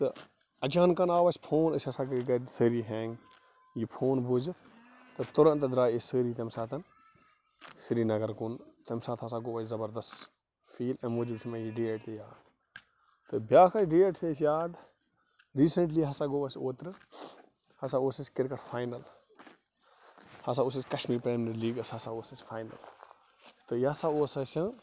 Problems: constant background noise